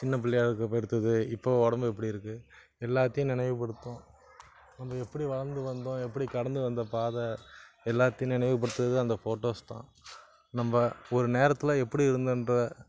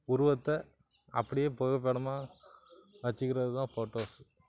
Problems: constant background noise